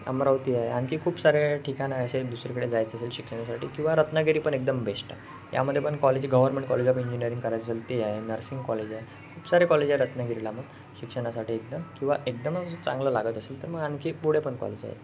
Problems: constant background noise, background conversations at intervals